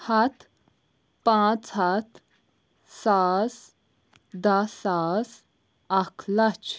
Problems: none marked